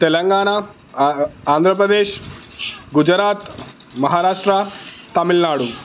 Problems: constant background noise